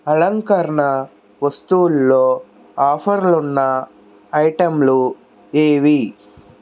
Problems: none marked